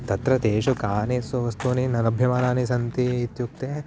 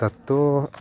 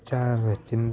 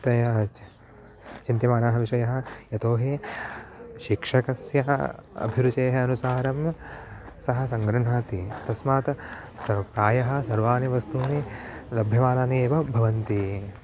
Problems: background sounds at intervals